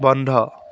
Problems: background sounds at intervals